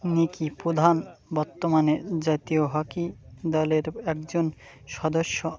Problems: constant background noise